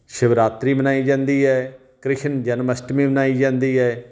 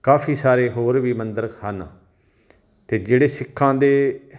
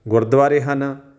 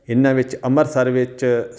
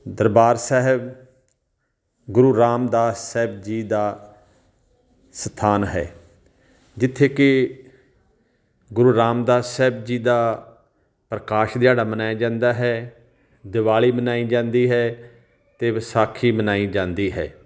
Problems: background sounds at intervals